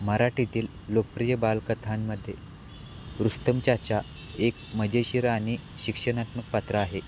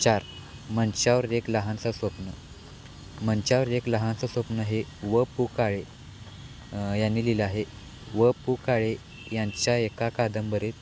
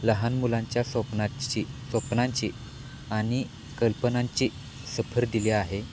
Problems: none marked